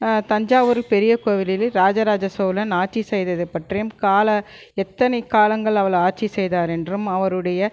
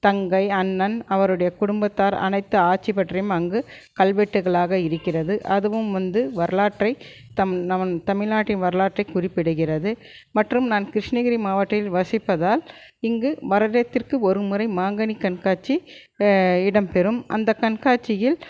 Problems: none marked